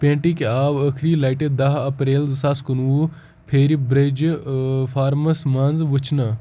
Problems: constant background noise